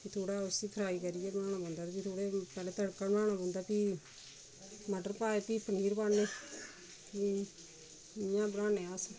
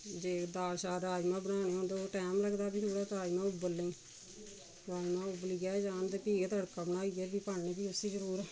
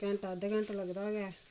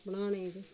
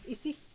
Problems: constant background noise, low volume